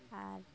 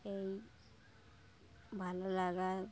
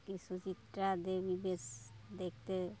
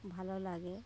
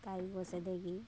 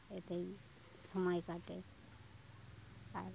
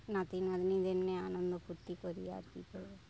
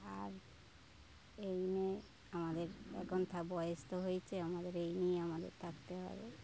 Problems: background sounds at intervals, continuous background conversations